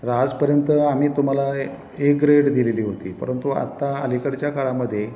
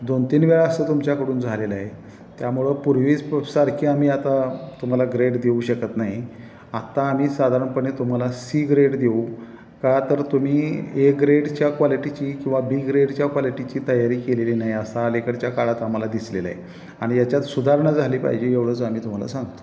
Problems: none marked